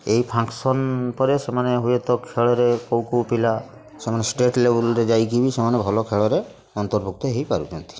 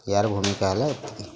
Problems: constant background noise, continuous background conversations